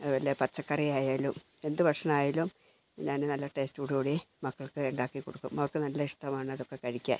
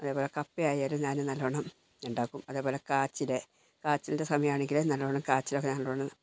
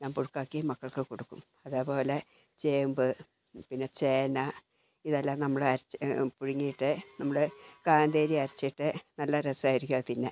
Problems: low volume